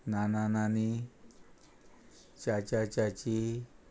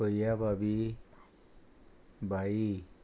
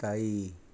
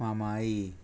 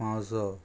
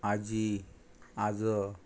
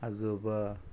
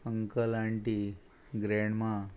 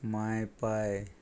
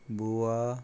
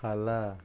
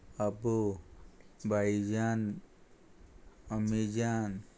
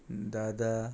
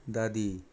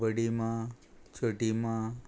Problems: constant background noise